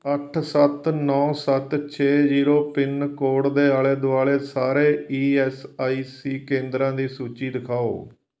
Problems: background sounds at intervals